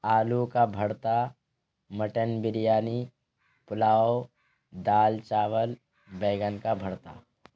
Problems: constant background noise